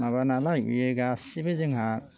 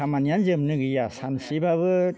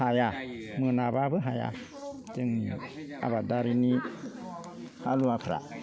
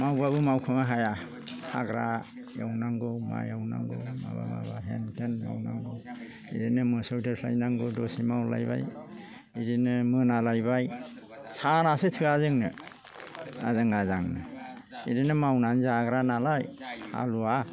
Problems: low volume